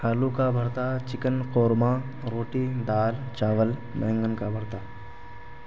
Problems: constant background noise